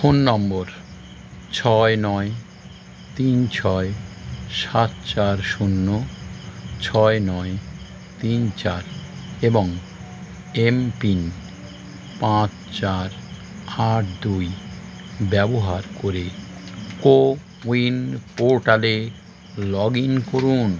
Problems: constant background noise